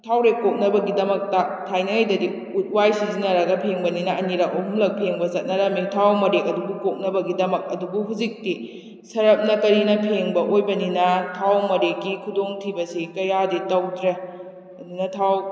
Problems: echo